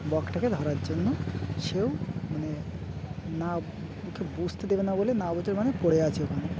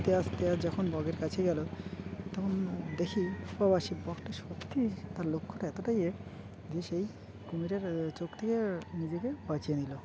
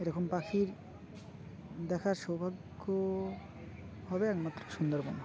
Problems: constant background noise, continuous background conversations